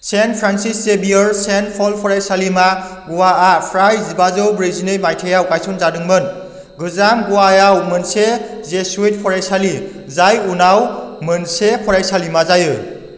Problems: low volume